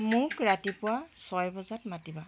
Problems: background sounds at intervals